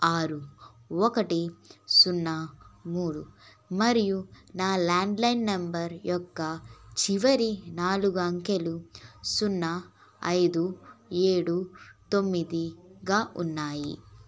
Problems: none marked